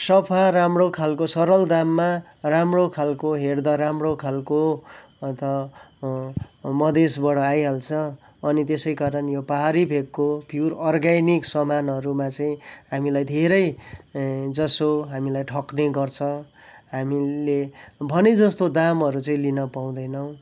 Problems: background sounds at intervals